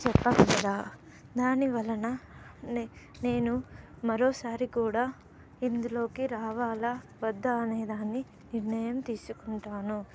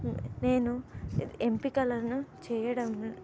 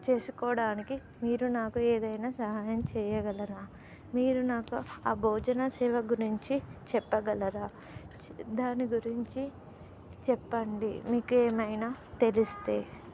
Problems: none marked